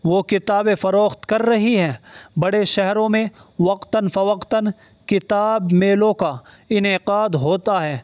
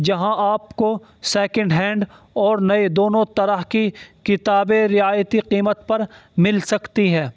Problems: constant background noise